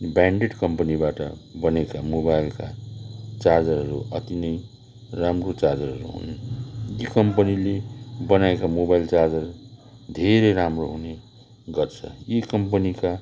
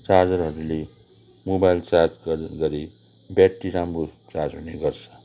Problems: background sounds at intervals, continuous background conversations